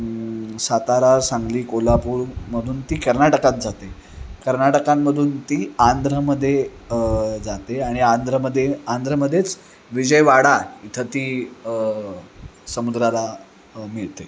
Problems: constant background noise, background conversations at intervals